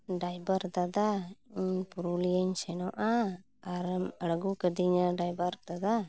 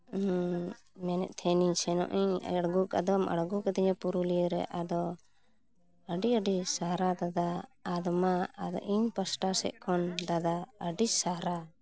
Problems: none marked